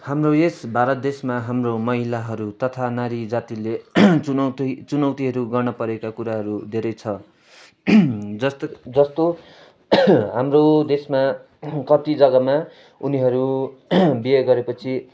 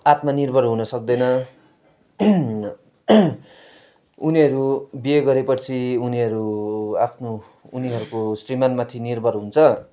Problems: background sounds at intervals